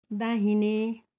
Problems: none marked